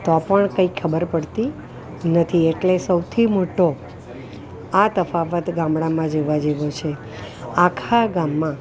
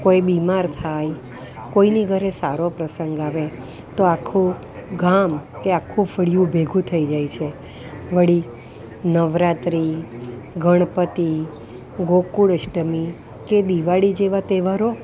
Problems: constant background noise